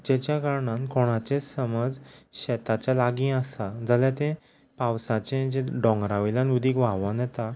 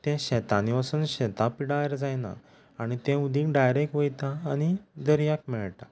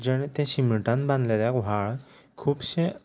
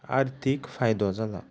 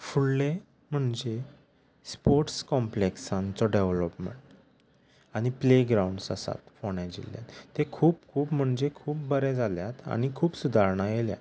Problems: background sounds at intervals